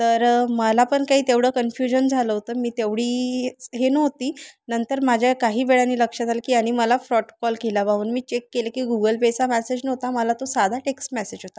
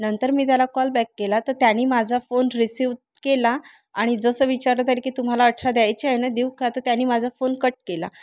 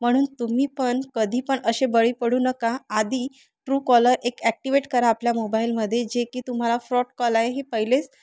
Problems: constant background noise, continuous background conversations